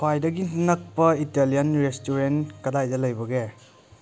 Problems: none marked